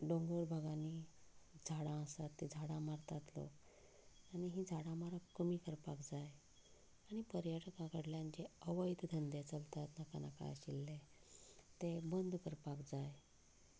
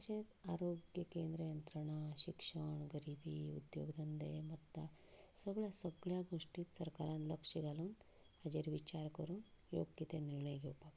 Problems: background conversations at intervals, low volume